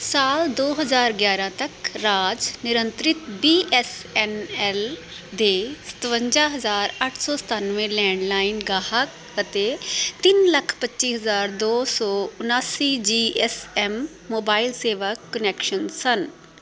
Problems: none marked